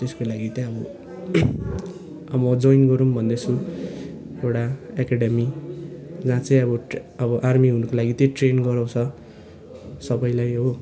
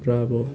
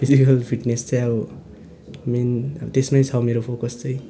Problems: constant background noise, continuous background conversations